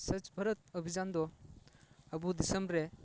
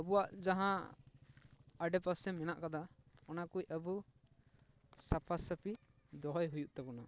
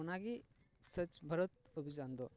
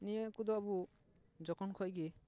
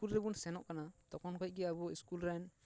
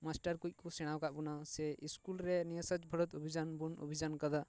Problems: background conversations at intervals